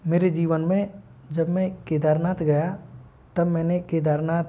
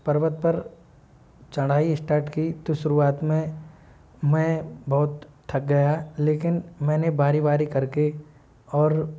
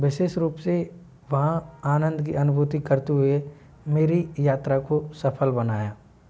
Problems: low volume